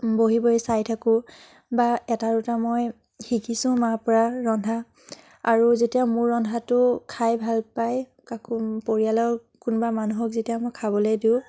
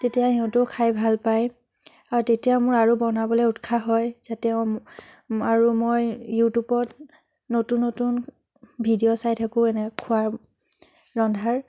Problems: none marked